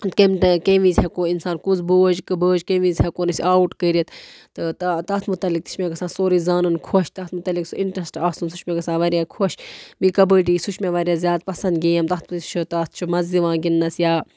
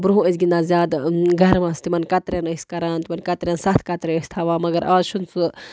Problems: constant background noise